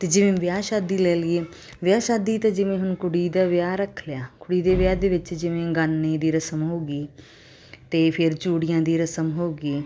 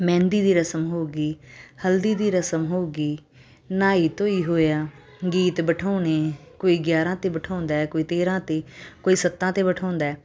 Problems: constant background noise